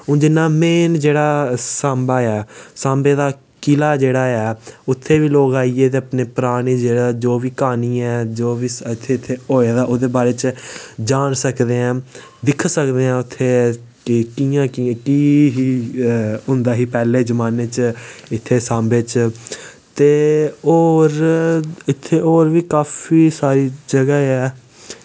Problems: background sounds at intervals